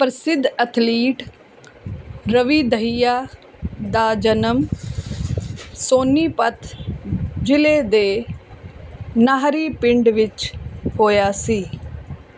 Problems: background sounds at intervals